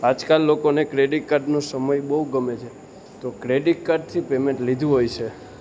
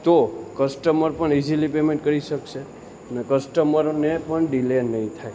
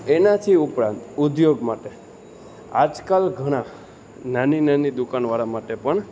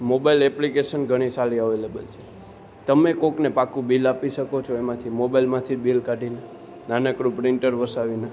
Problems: none marked